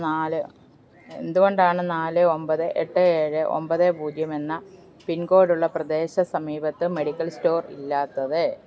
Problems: none marked